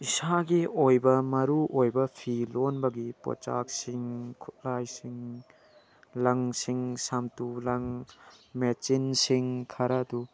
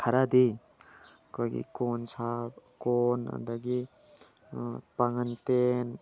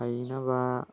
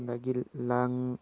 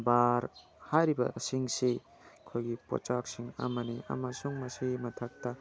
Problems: background sounds at intervals